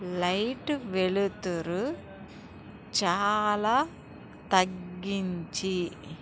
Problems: background sounds at intervals